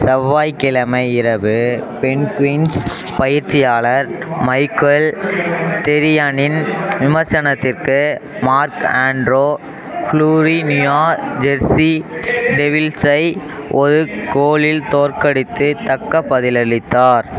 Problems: constant background noise